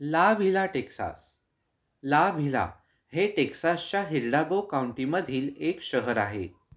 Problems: background sounds at intervals